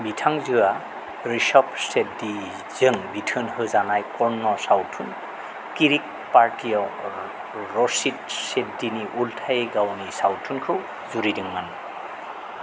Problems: constant background noise